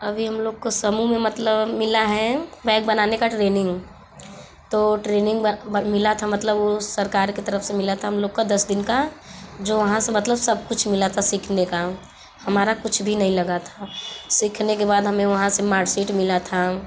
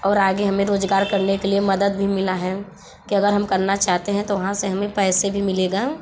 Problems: background sounds at intervals, background conversations at intervals